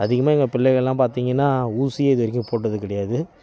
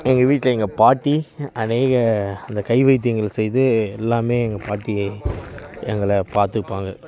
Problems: continuous background conversations